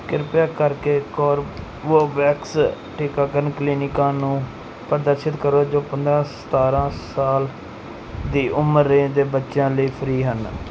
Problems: background sounds at intervals